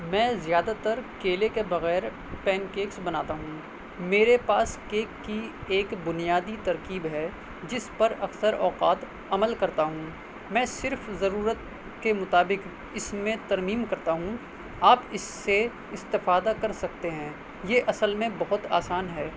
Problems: constant background noise